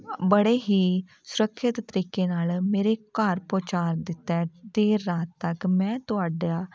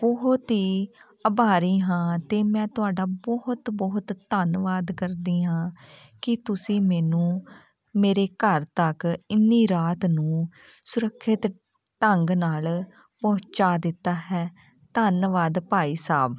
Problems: background sounds at intervals